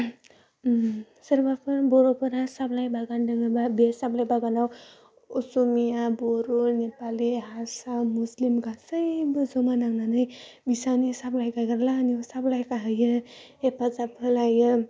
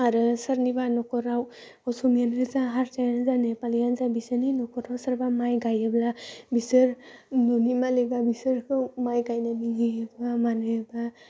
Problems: none marked